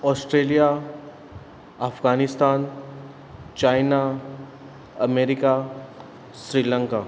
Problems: constant background noise